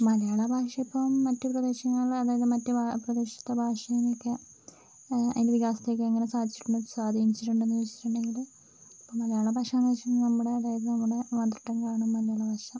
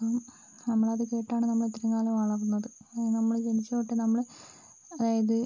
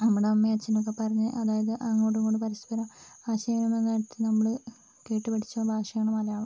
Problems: constant background noise, low volume